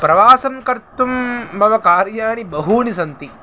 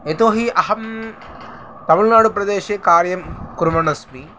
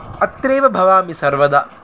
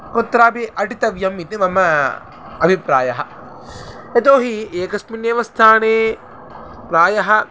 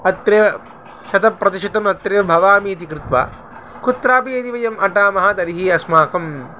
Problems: constant background noise